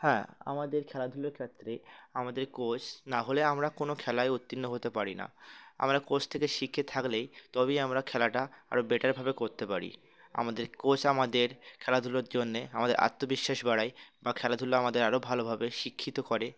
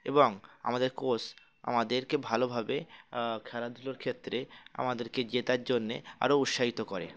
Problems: background sounds at intervals